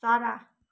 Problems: none marked